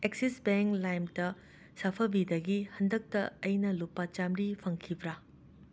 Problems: constant background noise